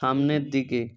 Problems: none marked